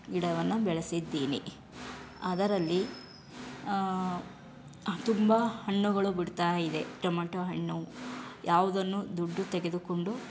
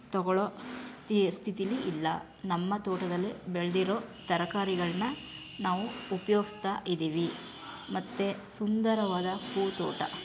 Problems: background sounds at intervals